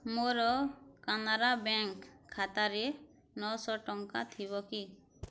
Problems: low volume